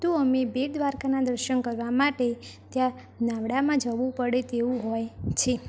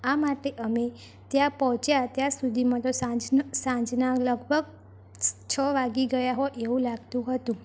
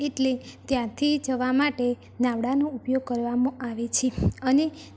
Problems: background sounds at intervals